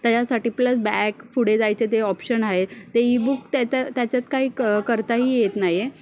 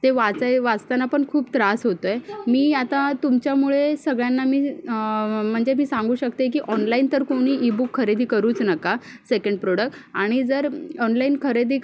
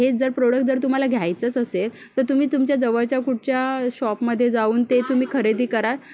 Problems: none marked